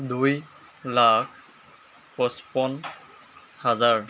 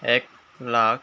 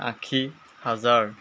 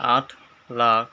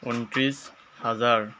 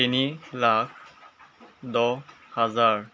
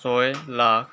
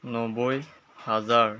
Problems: constant background noise